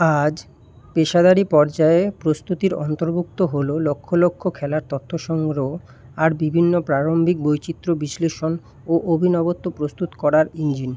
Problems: background sounds at intervals